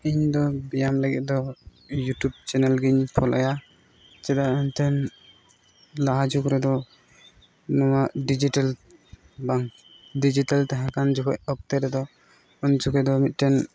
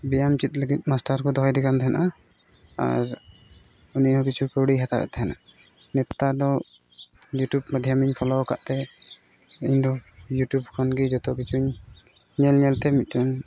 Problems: none marked